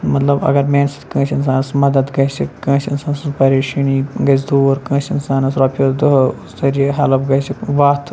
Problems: none marked